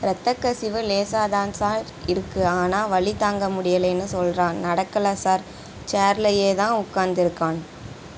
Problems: constant background noise